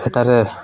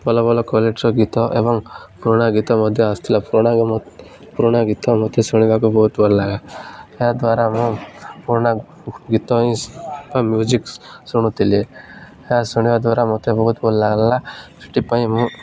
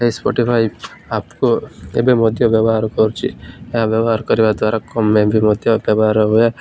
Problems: none marked